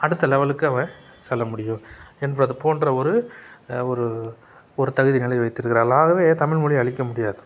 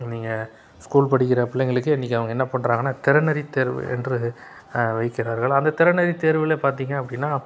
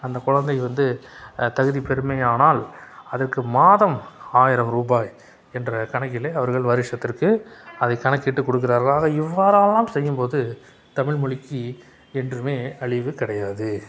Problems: none marked